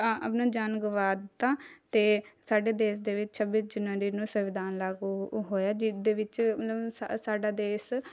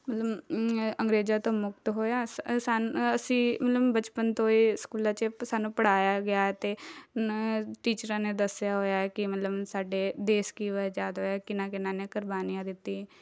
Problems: background sounds at intervals, background conversations at intervals